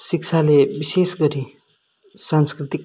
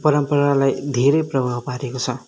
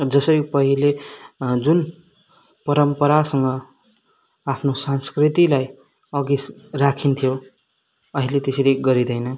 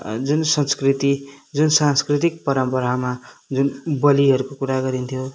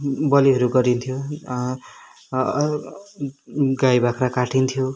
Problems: none marked